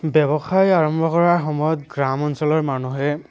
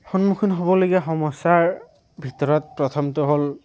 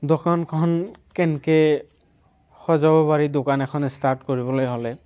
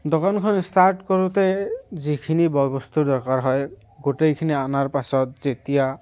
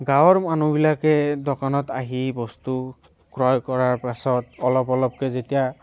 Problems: background sounds at intervals, background conversations at intervals